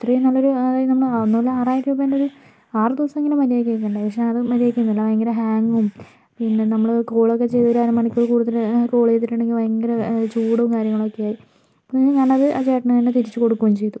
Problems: constant background noise